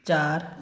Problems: none marked